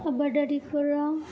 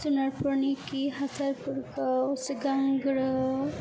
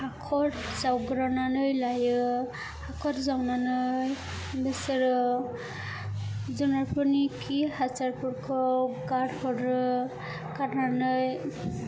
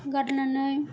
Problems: constant background noise